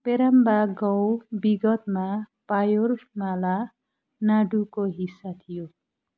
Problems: none marked